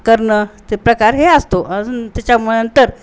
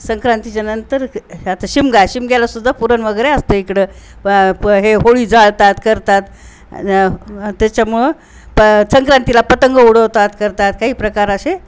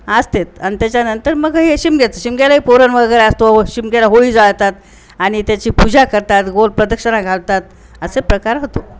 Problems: constant background noise, background conversations at intervals